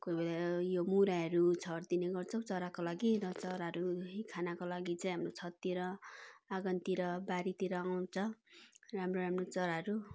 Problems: background conversations at intervals